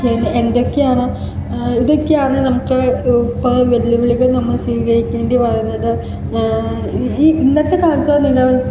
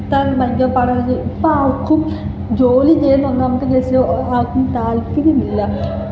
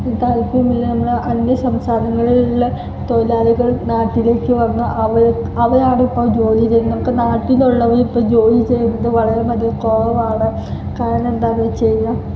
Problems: constant background noise, background conversations at intervals